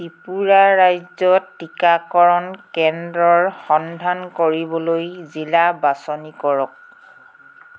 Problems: background sounds at intervals